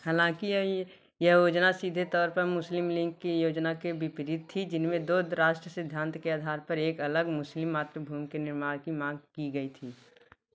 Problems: background sounds at intervals